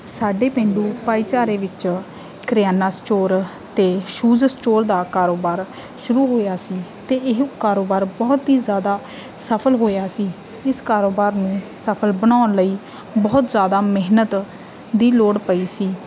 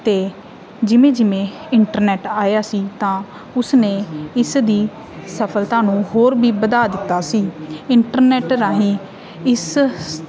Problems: background sounds at intervals